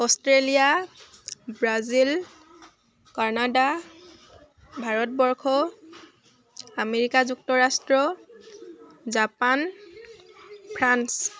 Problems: constant background noise